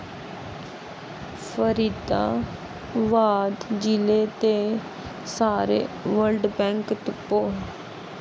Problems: constant background noise